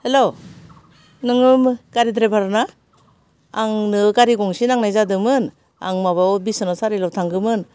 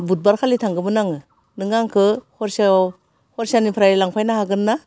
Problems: none marked